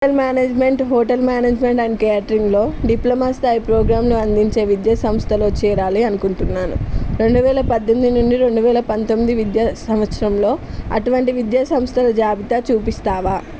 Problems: none marked